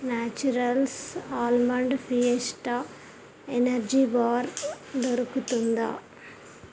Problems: constant background noise